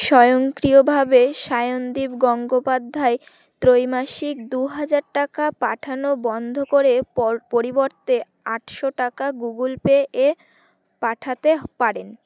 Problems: none marked